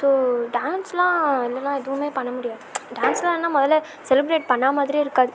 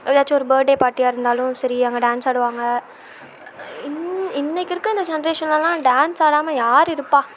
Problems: constant background noise